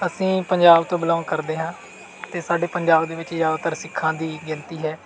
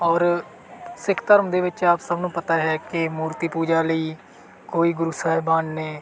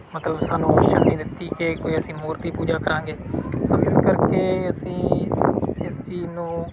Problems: background sounds at intervals